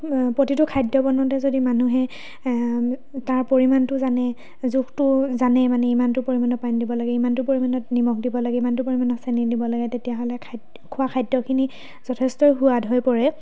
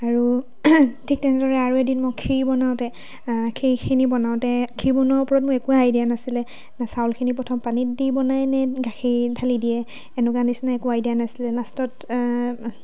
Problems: background sounds at intervals, background conversations at intervals